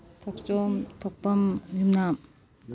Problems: none marked